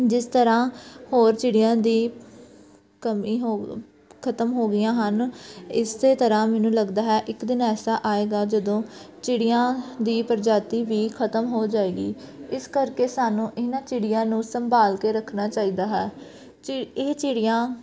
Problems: background sounds at intervals, background conversations at intervals